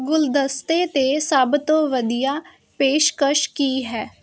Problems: constant background noise